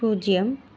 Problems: constant background noise